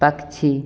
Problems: background sounds at intervals